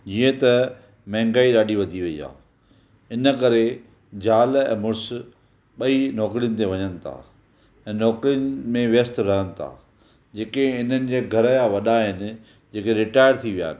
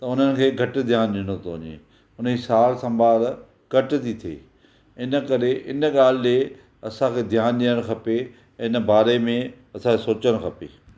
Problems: none marked